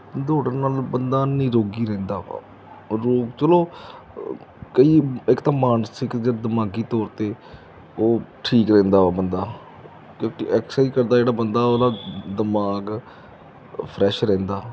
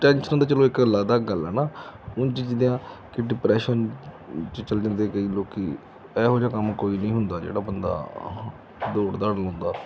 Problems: none marked